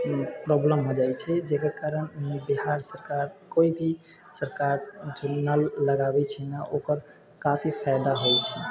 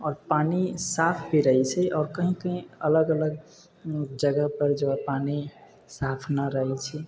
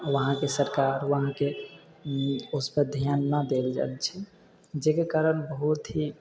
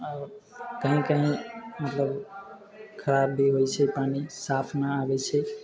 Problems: background sounds at intervals